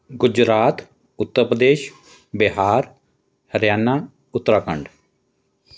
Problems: none marked